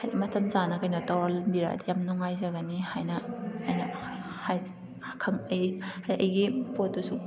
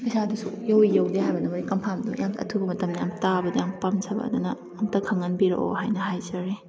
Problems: background sounds at intervals